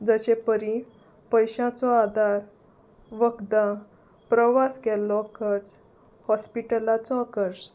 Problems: none marked